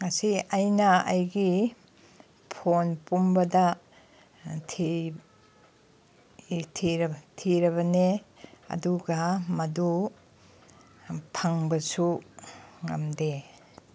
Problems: none marked